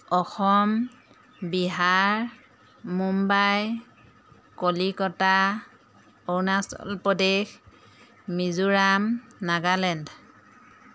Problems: constant background noise